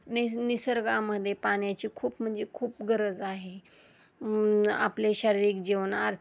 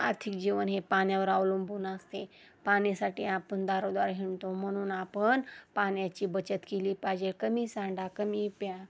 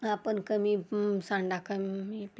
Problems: constant background noise